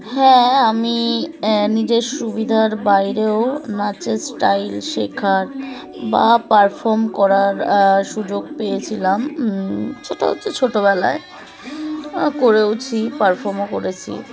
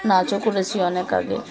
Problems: constant background noise, continuous background conversations